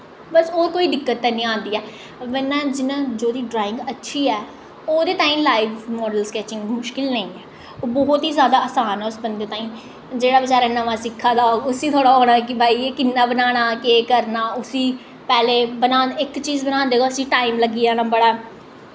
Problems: echo